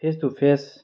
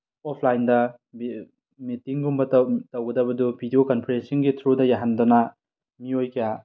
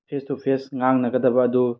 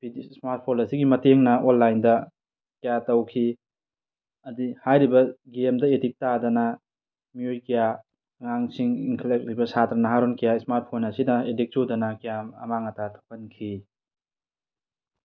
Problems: none marked